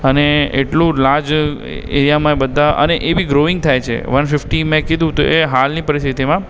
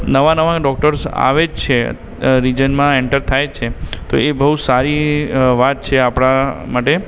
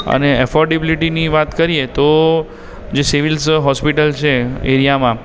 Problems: background sounds at intervals